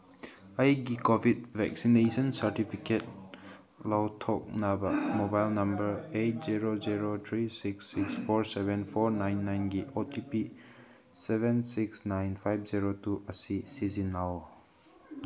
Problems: background conversations at intervals